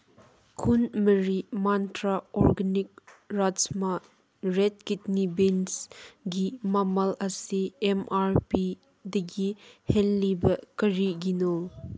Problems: background sounds at intervals